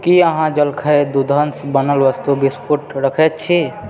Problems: background sounds at intervals, background conversations at intervals